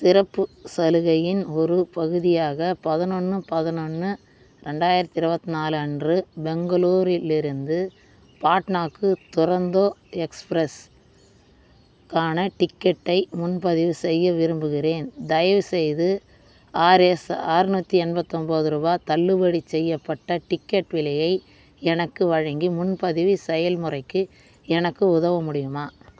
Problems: constant background noise